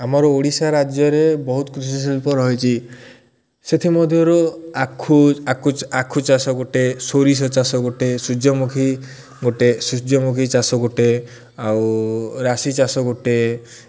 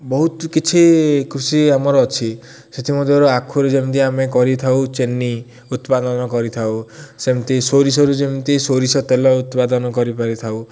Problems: none marked